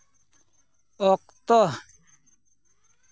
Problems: background sounds at intervals